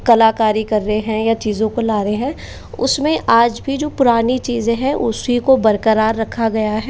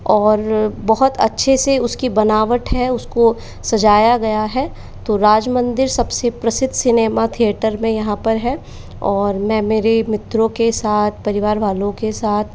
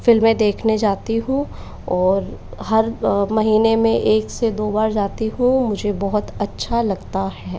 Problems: background sounds at intervals, echo